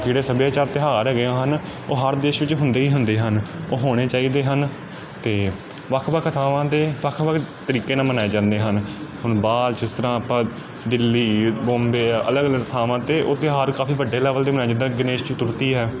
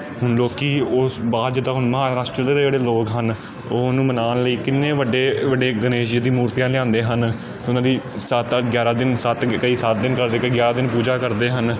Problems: none marked